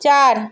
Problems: constant background noise